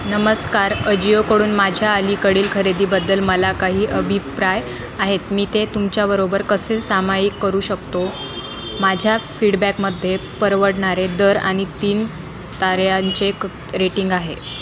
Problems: constant background noise, background conversations at intervals